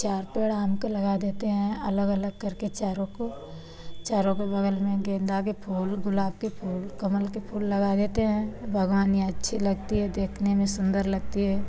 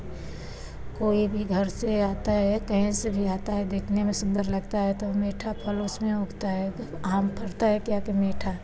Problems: constant background noise